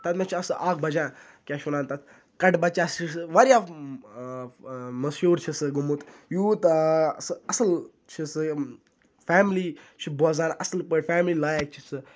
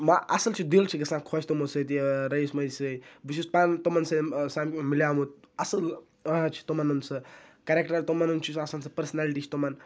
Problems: none marked